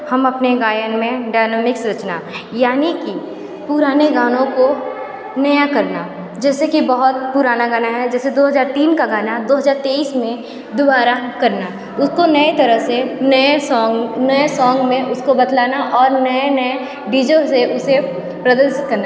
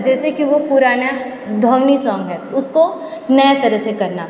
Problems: constant background noise, continuous background conversations, echo